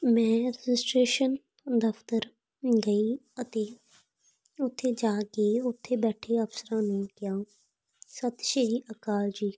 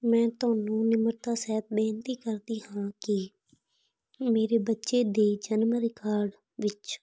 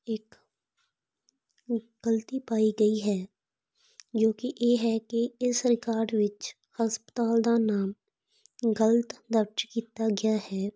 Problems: background sounds at intervals